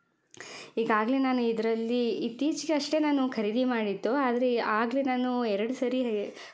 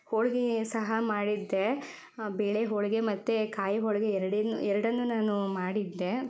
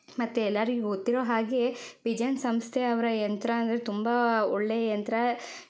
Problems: none marked